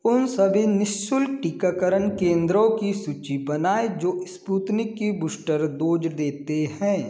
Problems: constant background noise